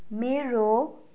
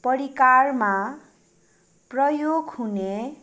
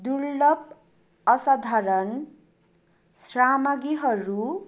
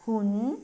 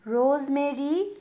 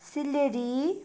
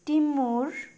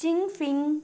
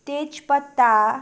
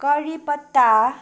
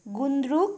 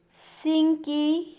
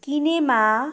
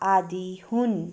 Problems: background sounds at intervals